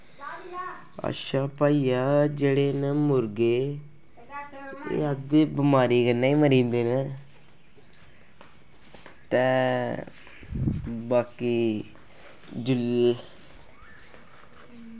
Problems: constant background noise